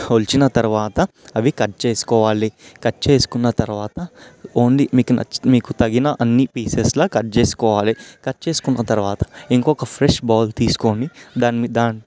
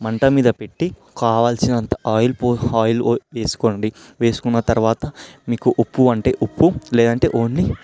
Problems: background sounds at intervals